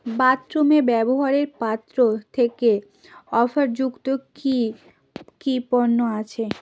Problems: constant background noise